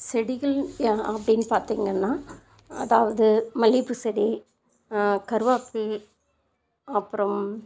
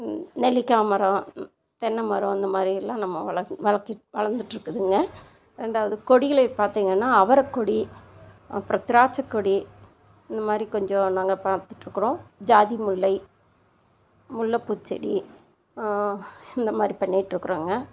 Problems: constant background noise